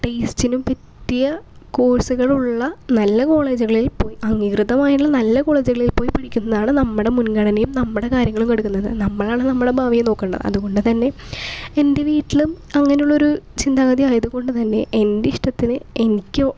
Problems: background sounds at intervals